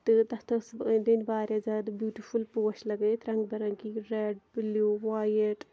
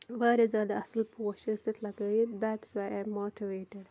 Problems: none marked